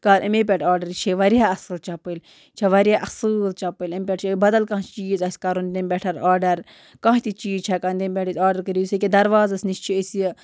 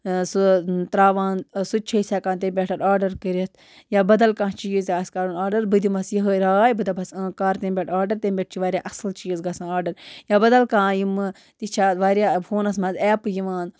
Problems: background sounds at intervals